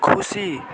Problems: continuous background conversations